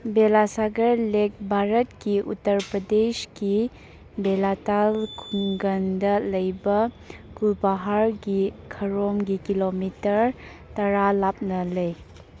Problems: background sounds at intervals